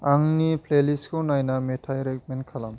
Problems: constant background noise